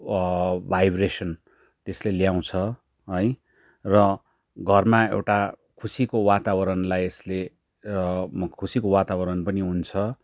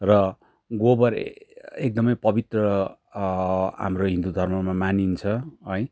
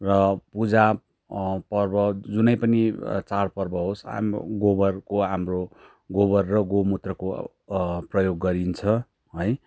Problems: background sounds at intervals